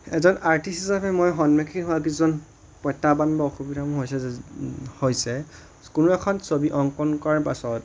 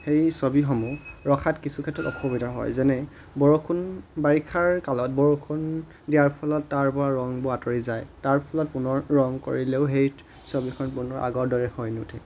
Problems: constant background noise